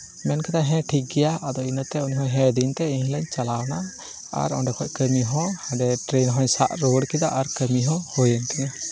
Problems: none marked